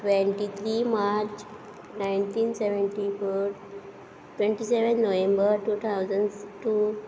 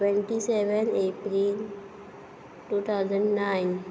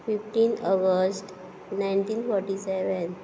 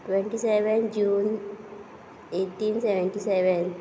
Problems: background sounds at intervals